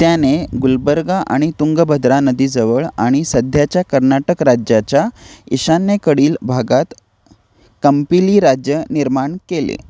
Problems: background sounds at intervals